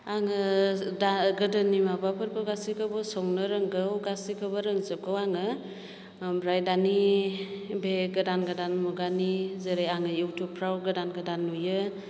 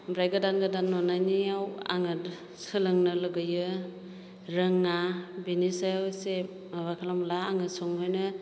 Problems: none marked